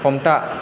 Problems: constant background noise